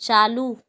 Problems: none marked